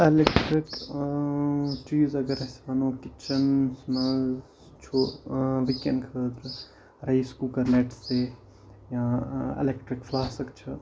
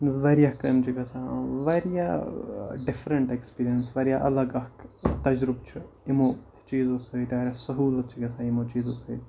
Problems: constant background noise